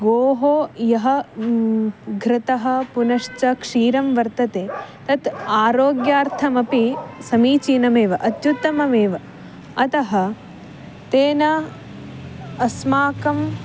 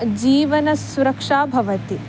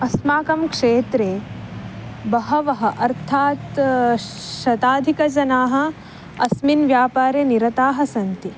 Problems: none marked